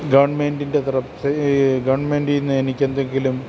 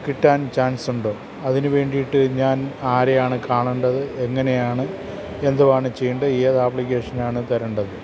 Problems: constant background noise